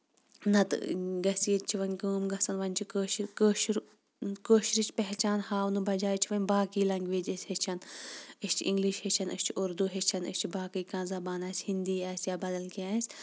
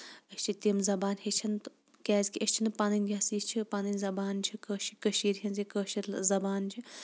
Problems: background sounds at intervals